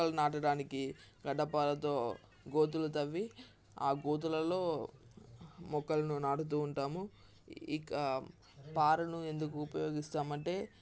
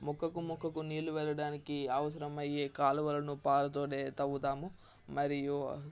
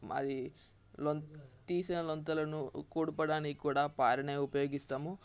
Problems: constant background noise, background conversations at intervals